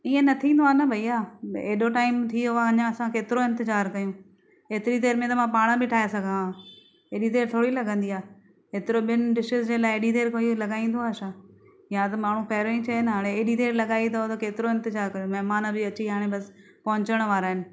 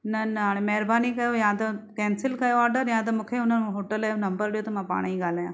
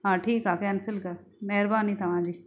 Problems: none marked